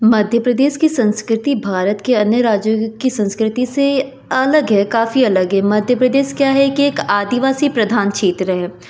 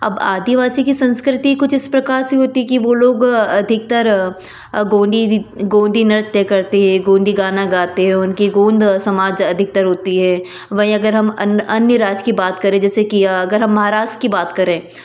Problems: none marked